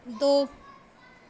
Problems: constant background noise